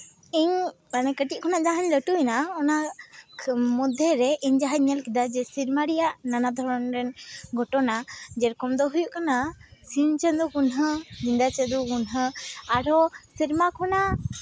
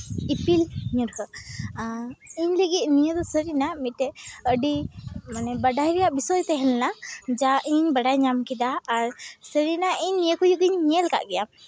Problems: constant background noise, background conversations at intervals